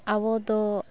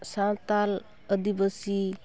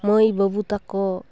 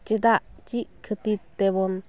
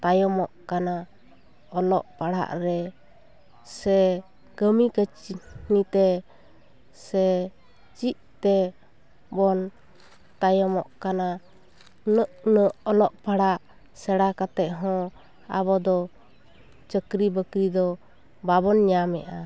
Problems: constant background noise, continuous background conversations